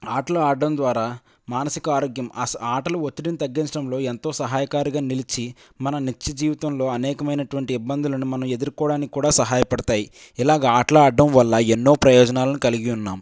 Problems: none marked